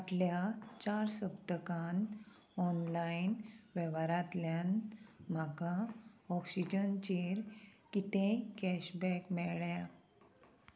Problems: constant background noise